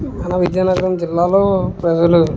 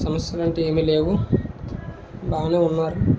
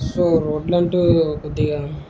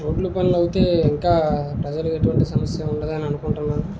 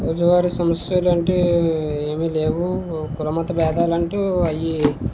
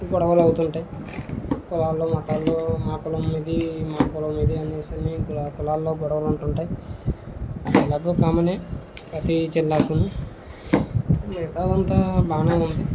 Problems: constant background noise